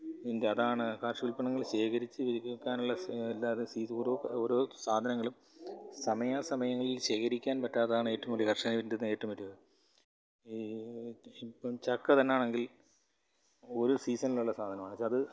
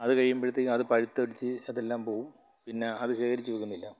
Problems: low volume